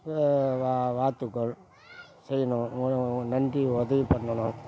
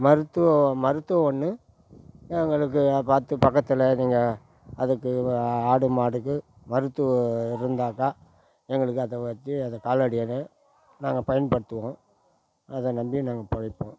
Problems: background sounds at intervals